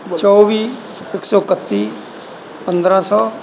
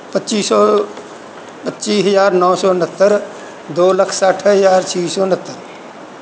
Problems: background sounds at intervals